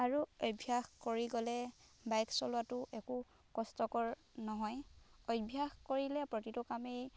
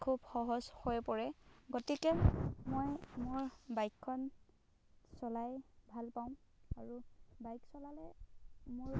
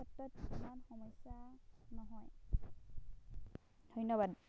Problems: background sounds at intervals